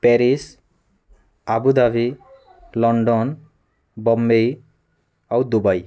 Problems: none marked